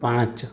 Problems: constant background noise